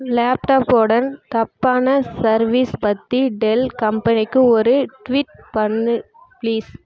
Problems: background sounds at intervals